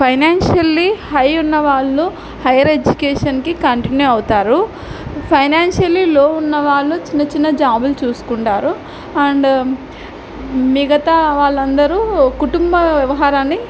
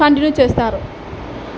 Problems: background sounds at intervals